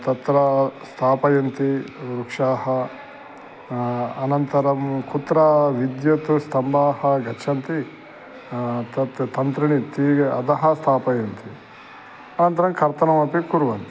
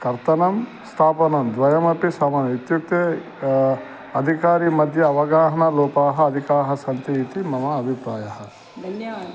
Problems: background sounds at intervals